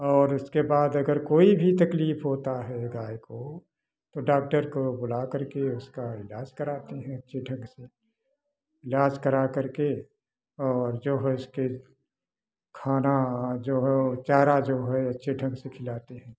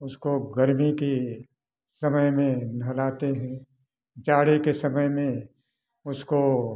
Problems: background sounds at intervals